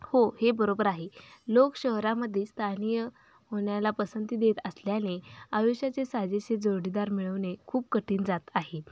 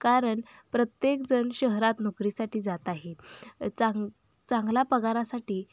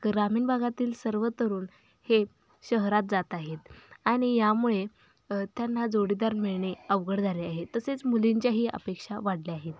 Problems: background sounds at intervals